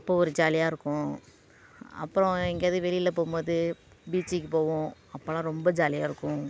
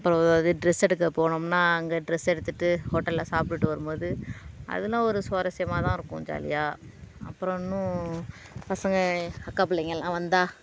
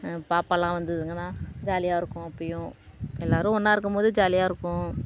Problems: constant background noise